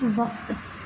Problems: constant background noise